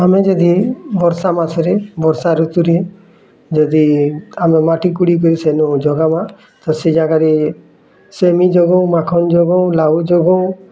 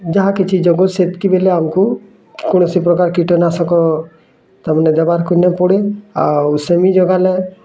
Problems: constant background noise, continuous background conversations